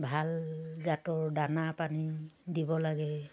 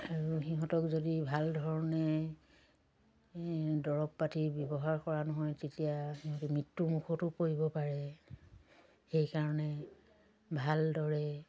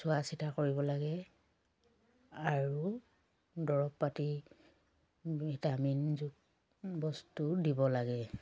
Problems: constant background noise